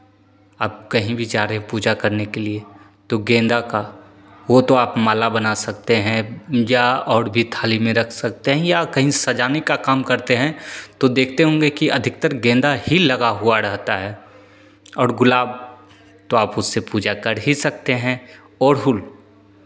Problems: none marked